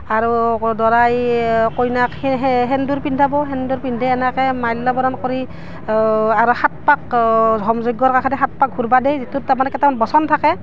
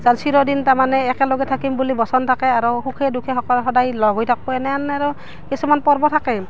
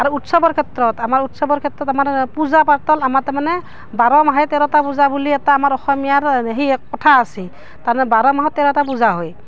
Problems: background sounds at intervals